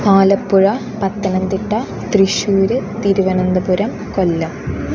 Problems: constant background noise